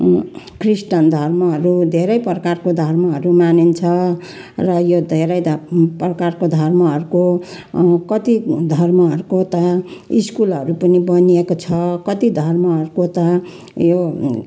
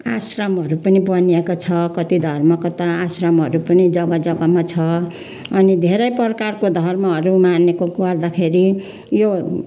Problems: none marked